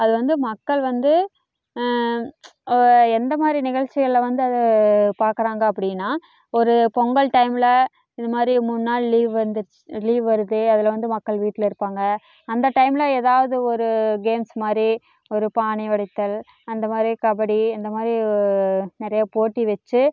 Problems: none marked